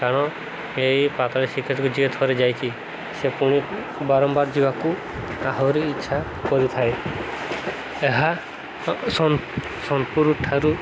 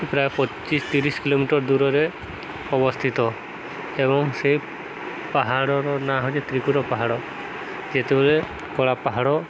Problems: constant background noise